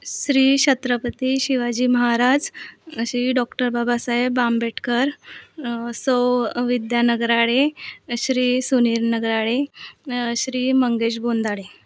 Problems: none marked